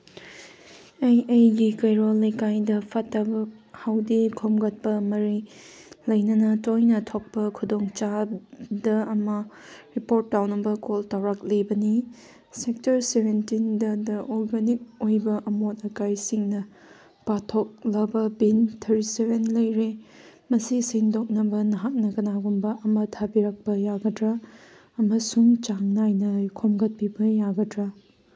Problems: background sounds at intervals